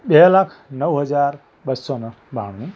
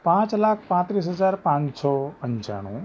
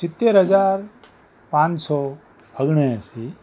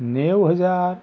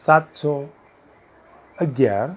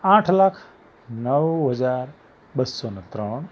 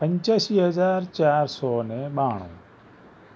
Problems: background conversations at intervals